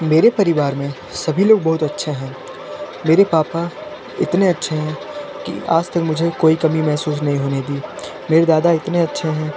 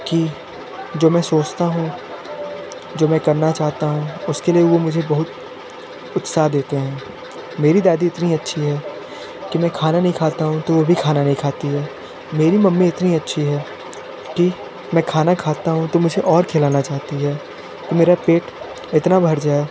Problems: constant background noise